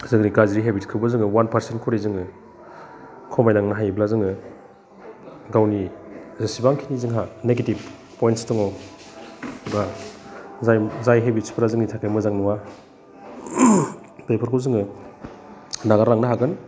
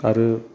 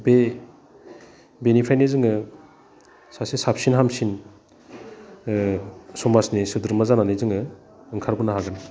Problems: none marked